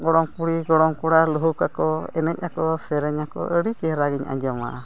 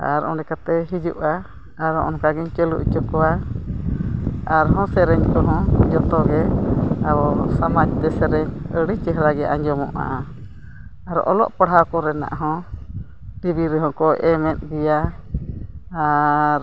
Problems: continuous background conversations